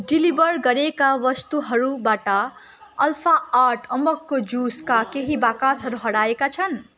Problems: constant background noise